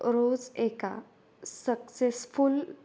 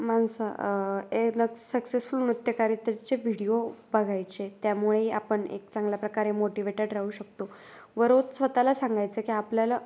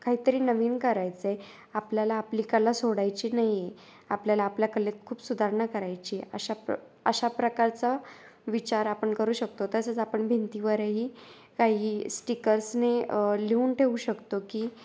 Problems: none marked